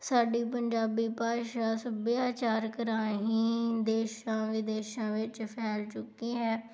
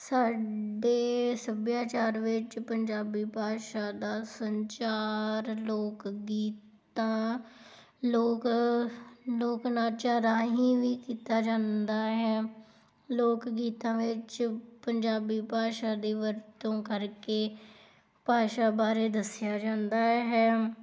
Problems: background sounds at intervals